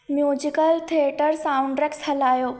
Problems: echo